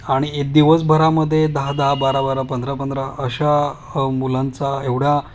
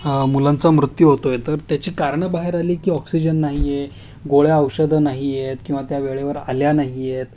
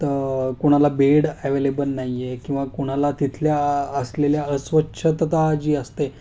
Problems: none marked